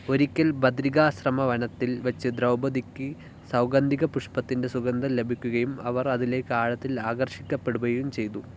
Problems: low volume